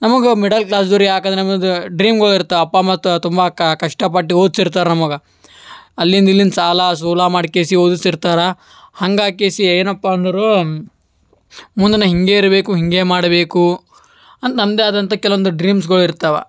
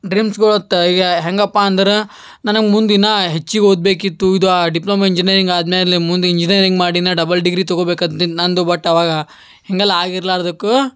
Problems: background sounds at intervals